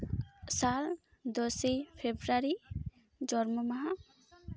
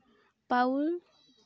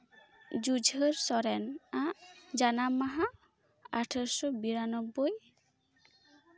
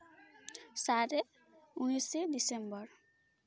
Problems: none marked